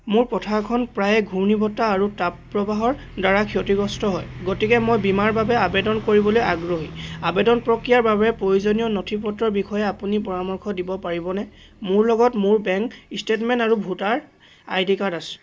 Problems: none marked